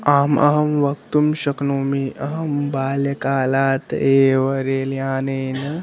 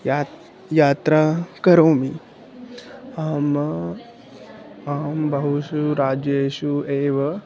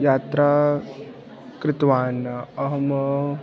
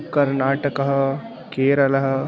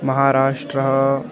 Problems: background sounds at intervals